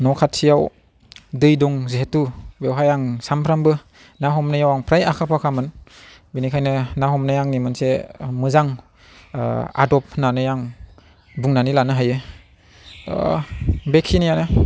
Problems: none marked